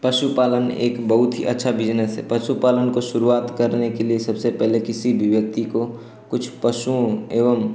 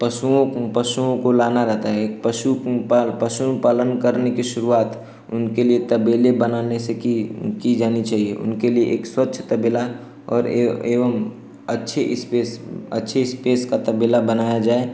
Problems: none marked